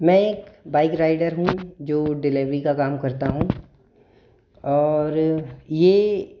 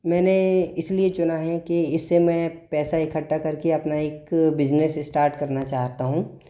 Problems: echo